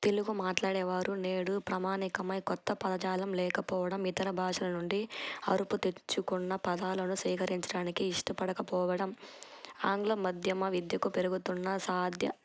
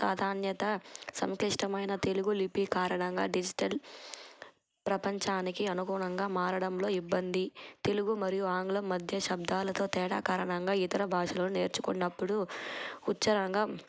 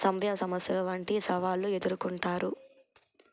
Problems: constant background noise